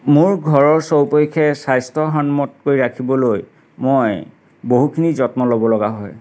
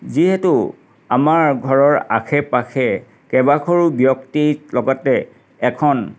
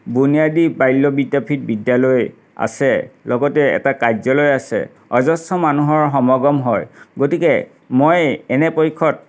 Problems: none marked